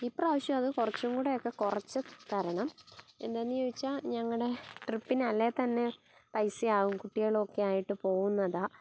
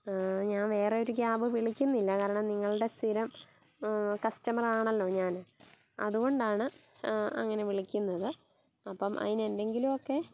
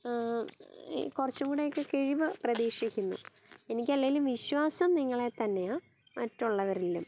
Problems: background sounds at intervals